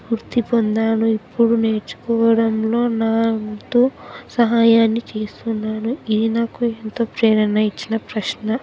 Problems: background sounds at intervals, background conversations at intervals